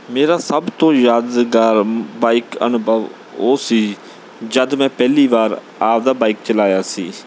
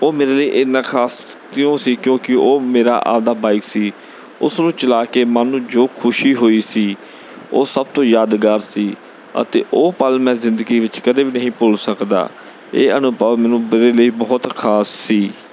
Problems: background sounds at intervals